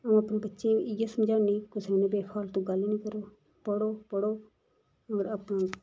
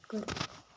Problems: none marked